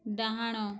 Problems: low volume